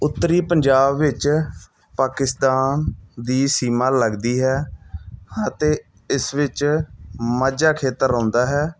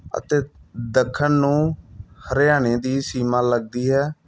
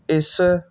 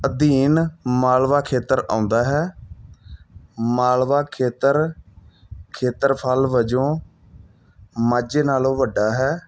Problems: none marked